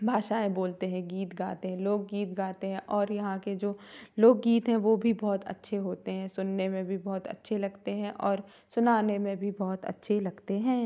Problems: none marked